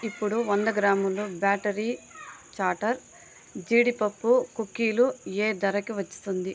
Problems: none marked